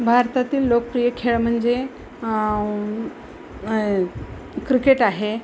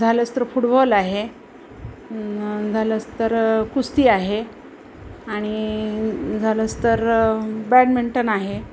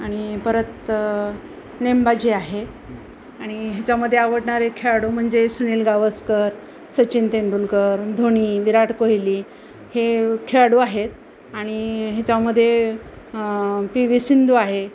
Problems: constant background noise, background conversations at intervals